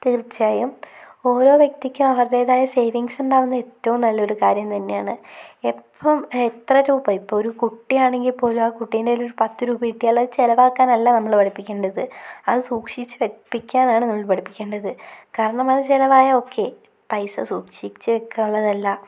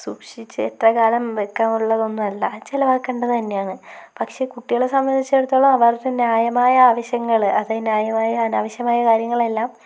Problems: none marked